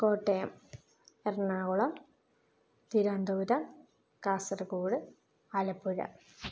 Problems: low volume